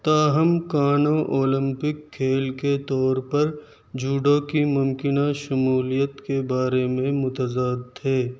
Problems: none marked